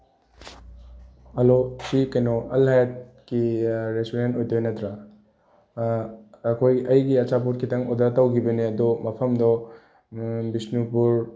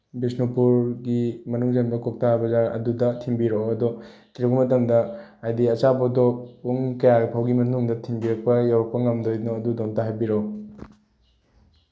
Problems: background sounds at intervals